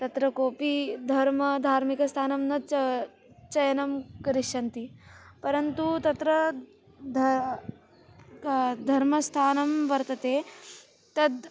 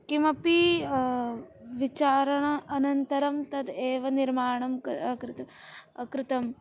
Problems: continuous background conversations